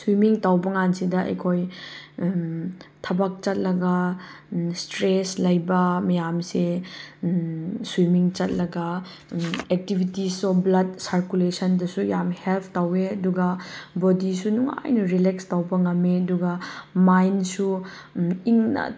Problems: background sounds at intervals